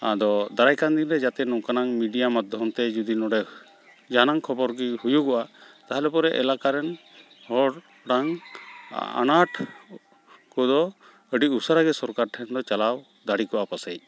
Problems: constant background noise